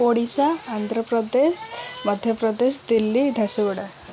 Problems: background conversations at intervals